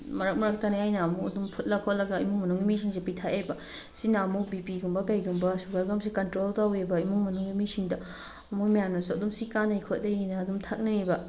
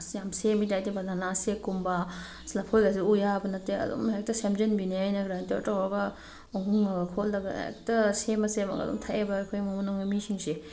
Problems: none marked